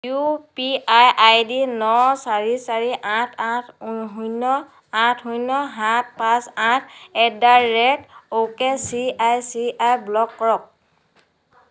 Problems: background conversations at intervals